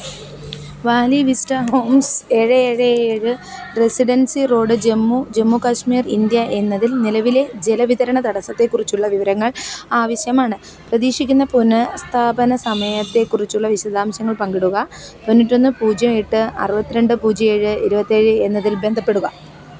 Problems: background sounds at intervals